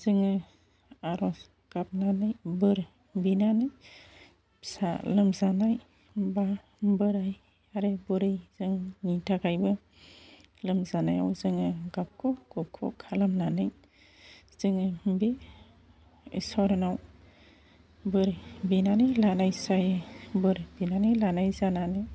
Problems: constant background noise